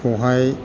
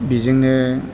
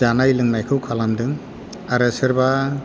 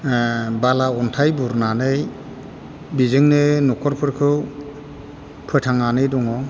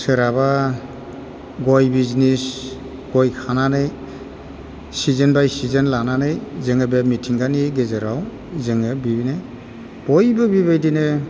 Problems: none marked